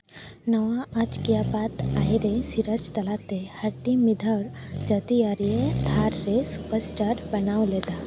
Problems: background sounds at intervals